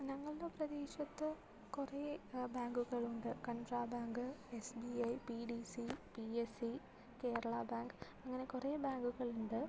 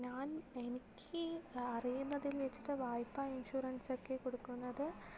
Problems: low volume